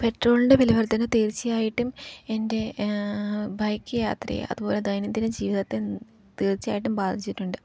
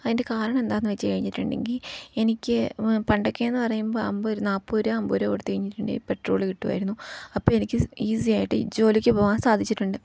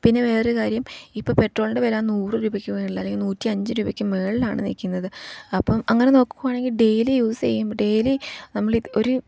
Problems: background sounds at intervals, low volume